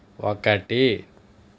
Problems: none marked